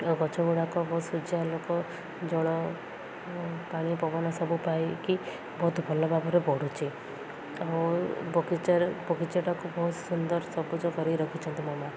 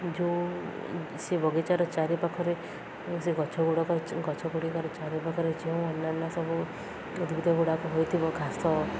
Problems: constant background noise, continuous background conversations